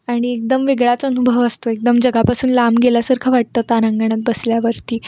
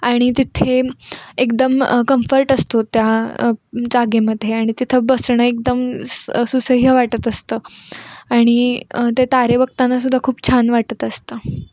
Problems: background sounds at intervals